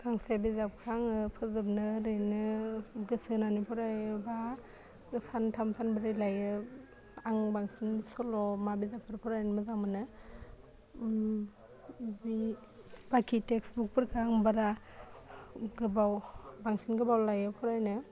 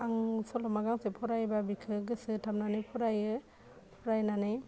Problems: low volume